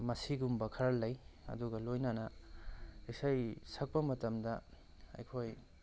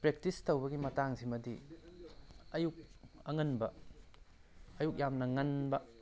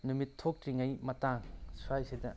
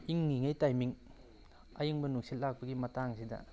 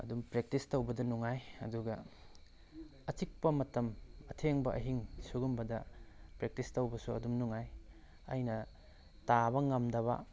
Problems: none marked